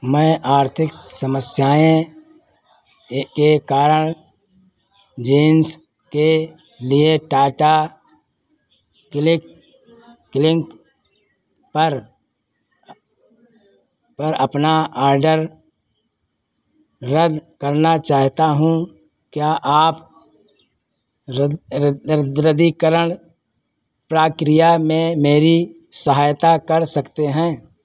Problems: constant background noise